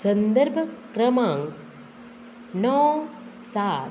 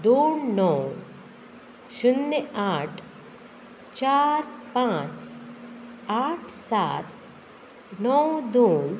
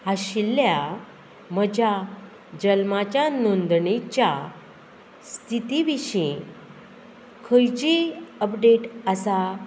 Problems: none marked